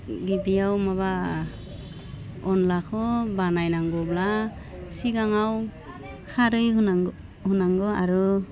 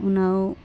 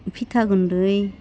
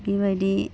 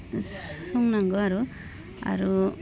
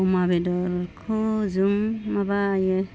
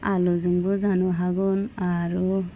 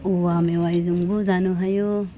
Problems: low volume